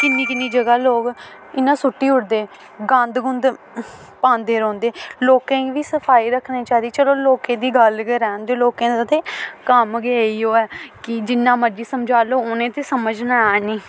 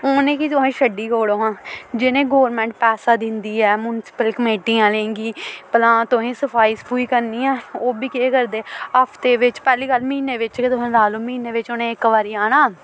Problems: constant background noise